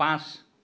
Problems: none marked